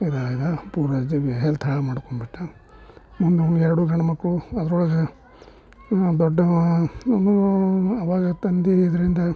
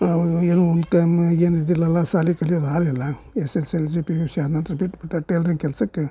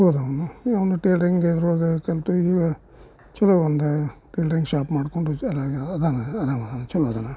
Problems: none marked